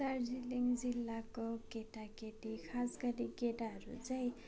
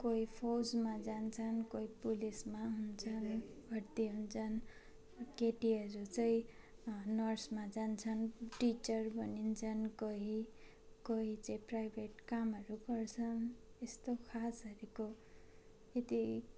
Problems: constant background noise, continuous background conversations